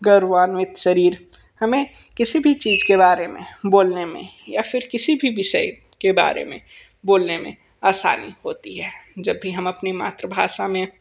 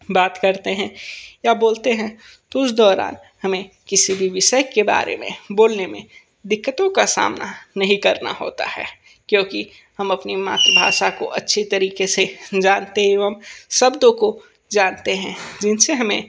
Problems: background sounds at intervals